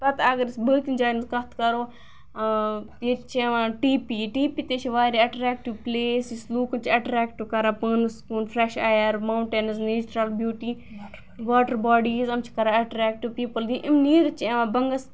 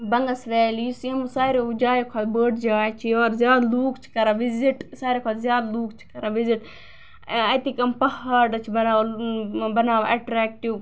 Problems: background sounds at intervals